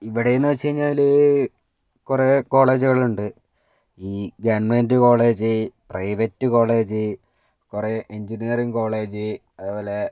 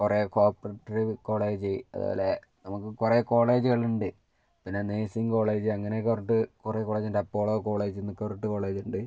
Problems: none marked